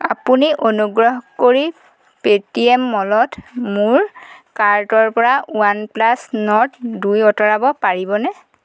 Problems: constant background noise